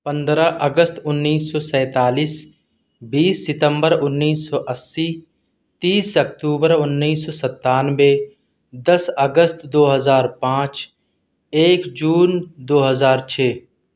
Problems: none marked